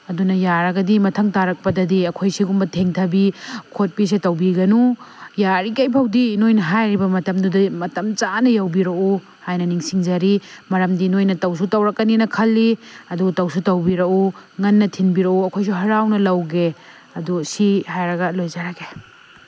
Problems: constant background noise